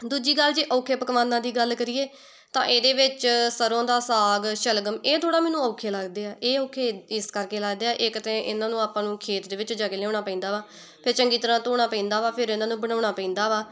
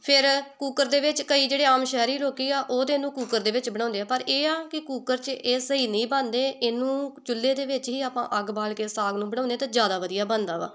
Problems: background conversations at intervals